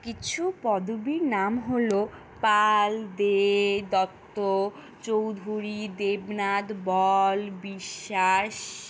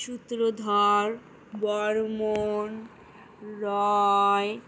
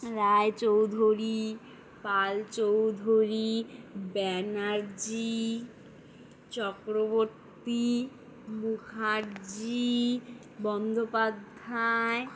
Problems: constant background noise